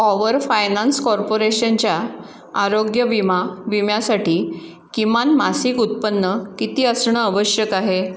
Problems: background sounds at intervals